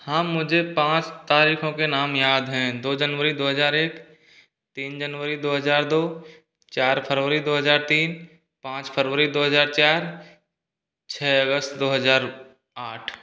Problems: background sounds at intervals